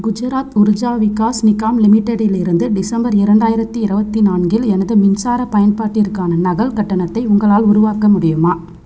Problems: constant background noise